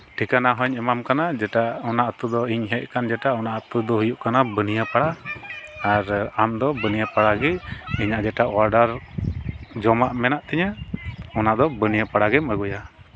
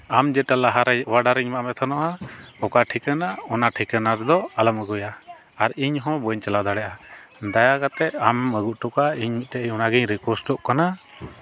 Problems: background conversations at intervals